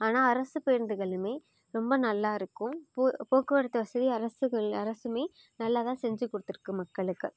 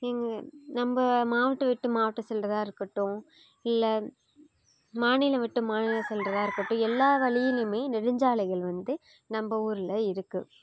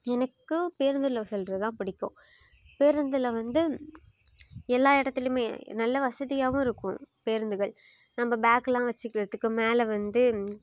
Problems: background sounds at intervals